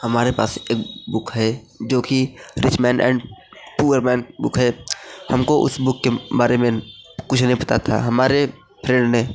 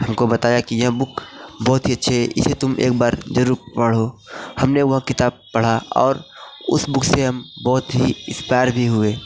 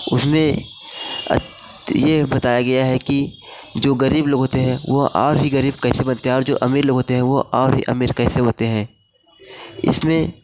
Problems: constant background noise